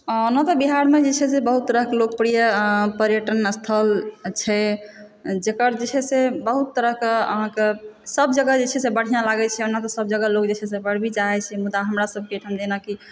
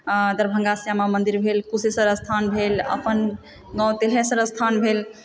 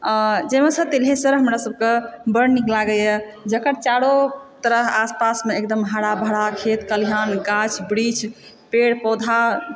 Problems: background sounds at intervals, background conversations at intervals, echo